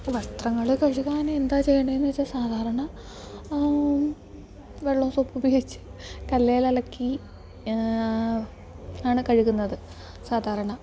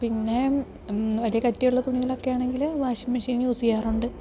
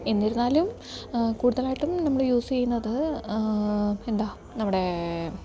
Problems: background sounds at intervals